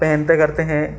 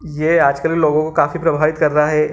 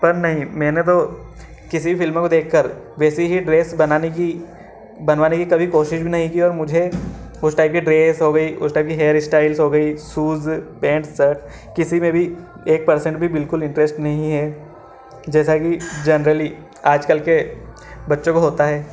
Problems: none marked